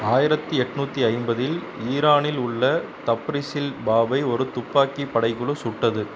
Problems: none marked